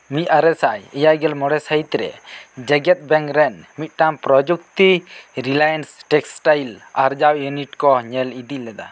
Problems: none marked